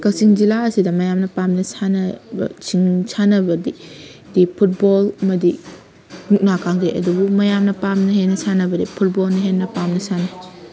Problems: constant background noise